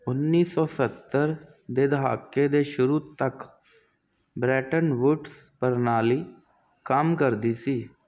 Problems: constant background noise